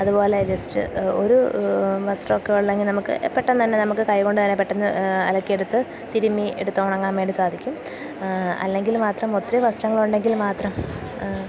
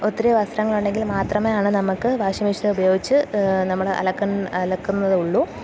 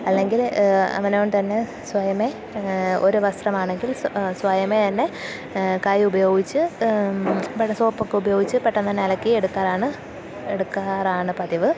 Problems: none marked